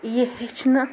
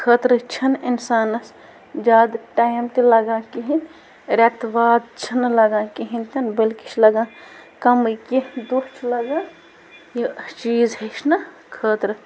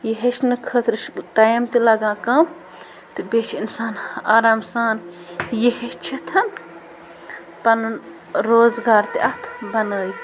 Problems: constant background noise